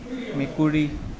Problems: constant background noise